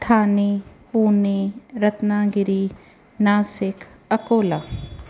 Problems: none marked